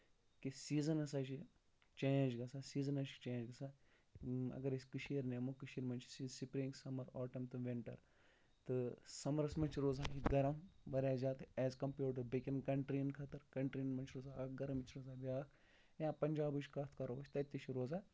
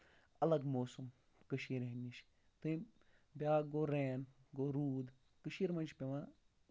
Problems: low volume